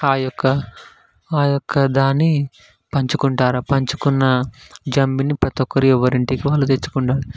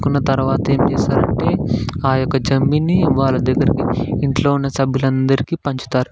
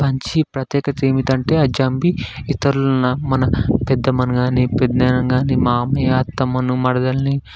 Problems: background sounds at intervals, background conversations at intervals